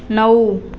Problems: none marked